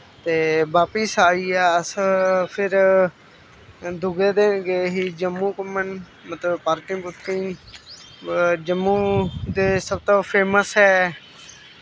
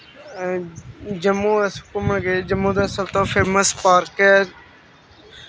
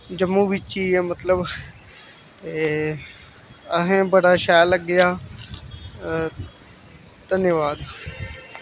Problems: none marked